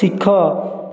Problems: continuous background conversations